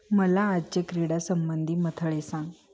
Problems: constant background noise, continuous background conversations